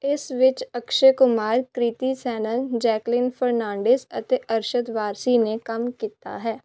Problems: none marked